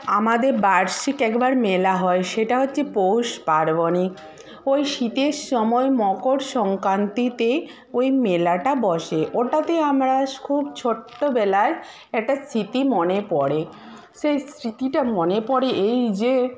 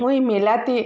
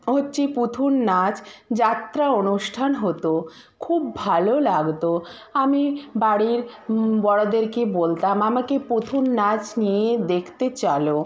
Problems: constant background noise, background conversations at intervals